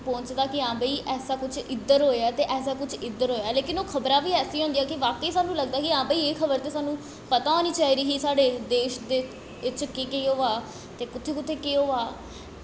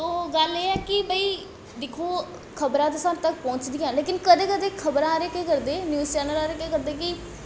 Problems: constant background noise, echo